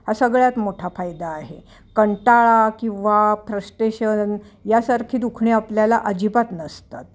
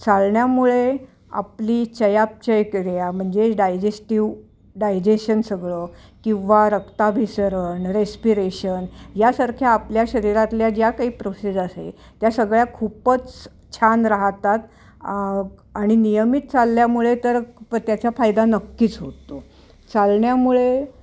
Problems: constant background noise, continuous background conversations